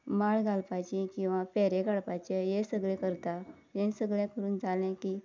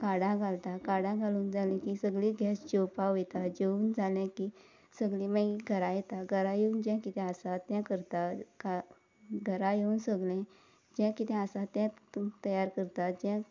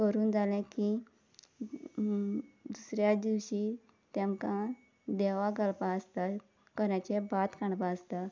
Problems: constant background noise